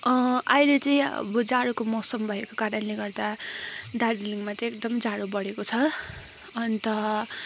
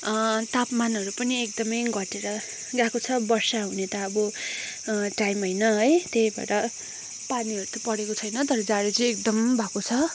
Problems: constant background noise